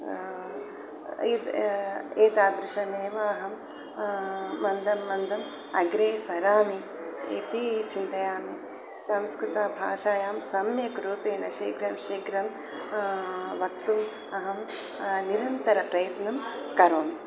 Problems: constant background noise